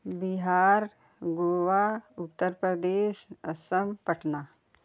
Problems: none marked